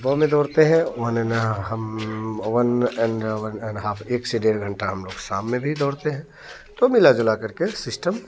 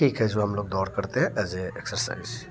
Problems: none marked